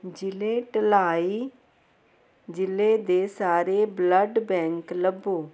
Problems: none marked